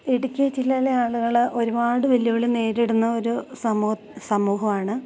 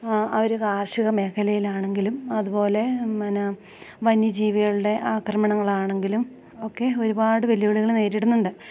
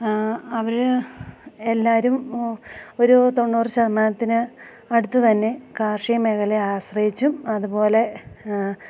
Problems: constant background noise, low volume